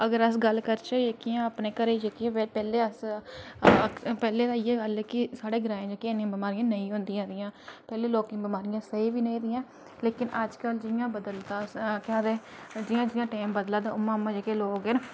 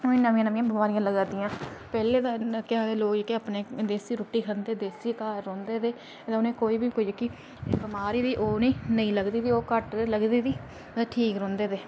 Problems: none marked